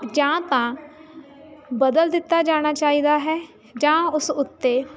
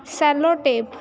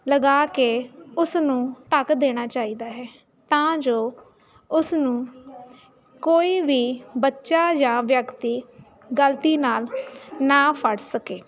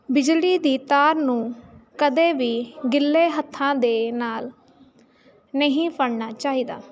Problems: constant background noise